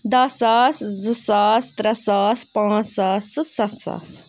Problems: background sounds at intervals